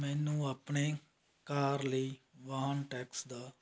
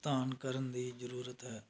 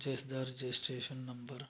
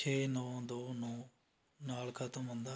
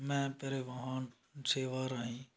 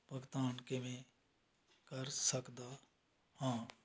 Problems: none marked